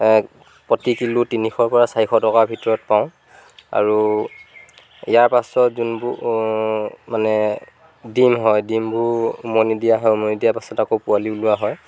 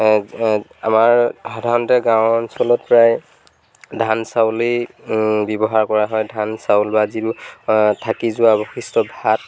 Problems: background sounds at intervals